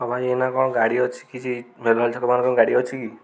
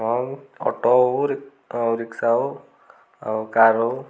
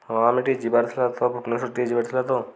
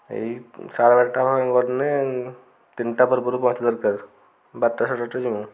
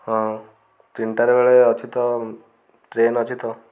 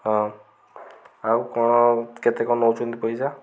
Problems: constant background noise